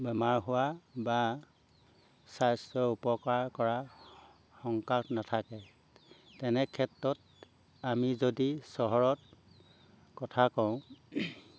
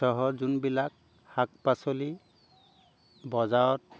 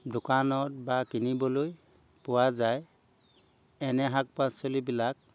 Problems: background sounds at intervals